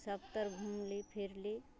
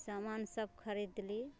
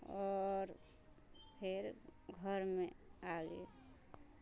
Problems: background sounds at intervals